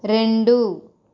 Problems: constant background noise